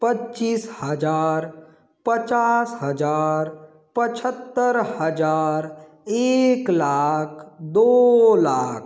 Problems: constant background noise